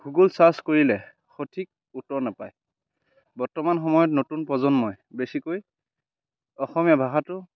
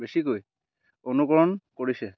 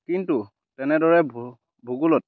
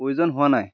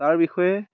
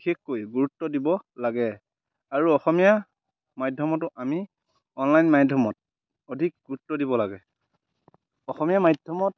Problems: background sounds at intervals